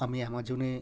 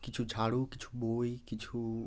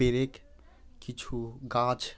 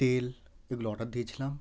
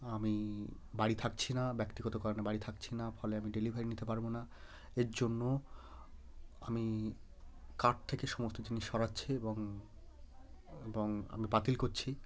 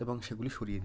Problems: none marked